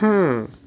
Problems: constant background noise